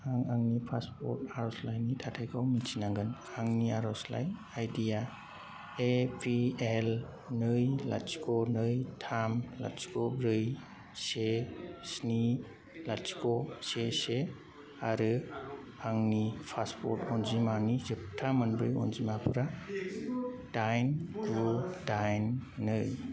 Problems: constant background noise